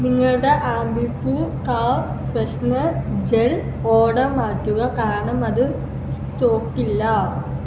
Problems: constant background noise